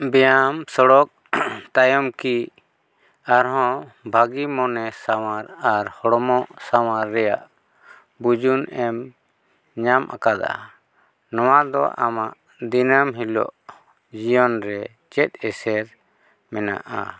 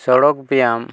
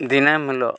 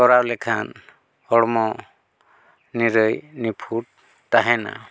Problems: background sounds at intervals